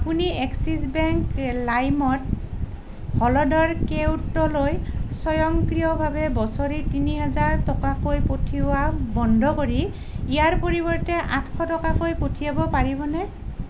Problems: none marked